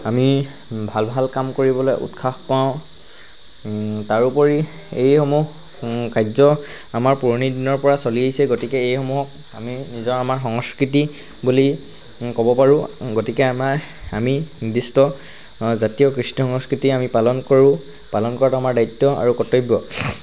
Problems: constant background noise